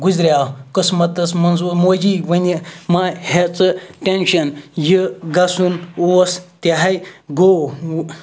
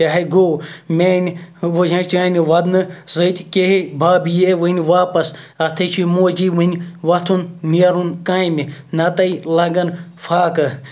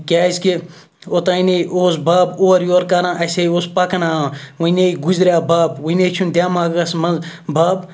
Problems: none marked